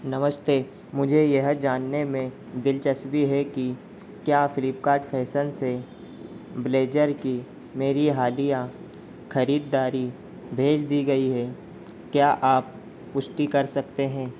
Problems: constant background noise